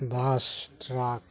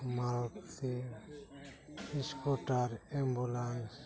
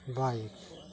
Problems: none marked